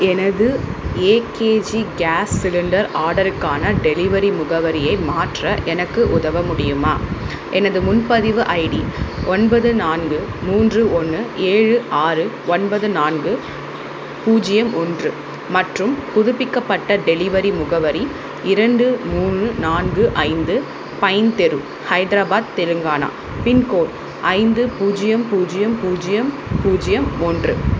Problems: constant background noise